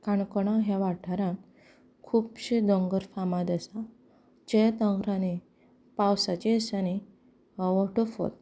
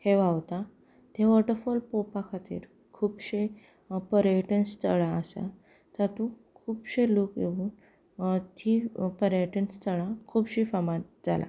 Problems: background conversations at intervals, low volume